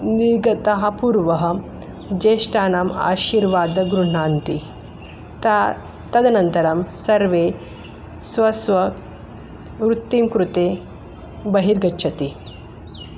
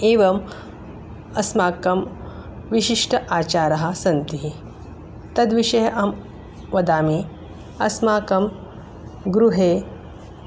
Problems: none marked